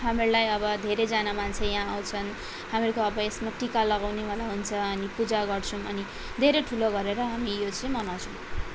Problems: constant background noise